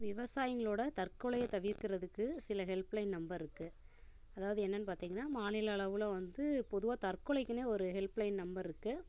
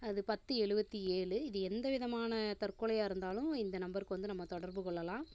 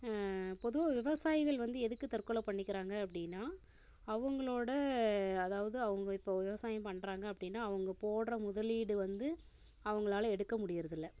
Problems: constant background noise